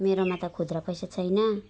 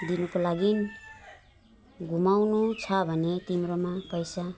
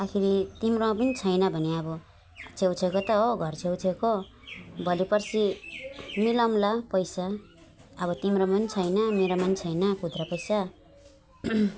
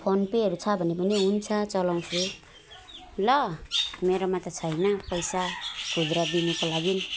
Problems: constant background noise, background conversations at intervals, low volume